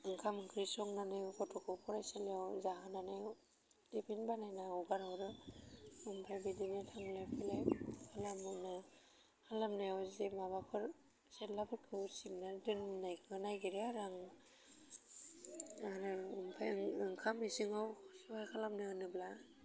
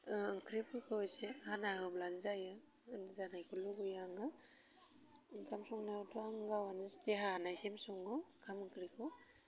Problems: constant background noise